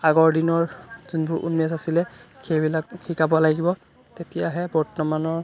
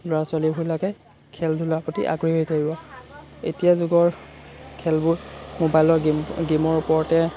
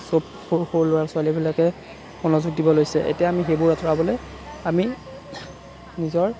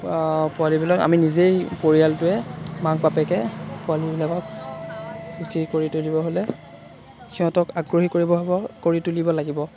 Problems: constant background noise